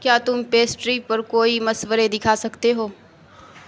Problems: constant background noise